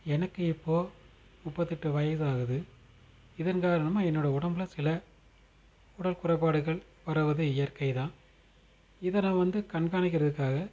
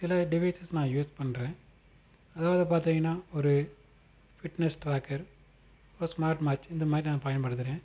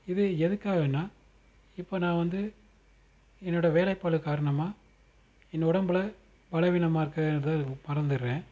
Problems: constant background noise